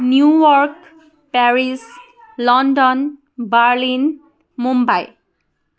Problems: background conversations at intervals